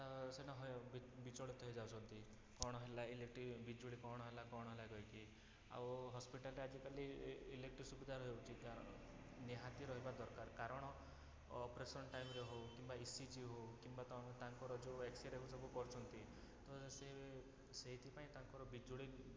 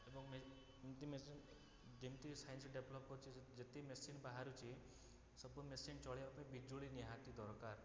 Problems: none marked